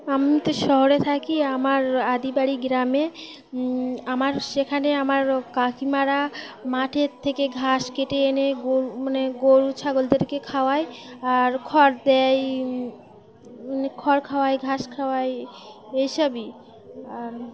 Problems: constant background noise, background conversations at intervals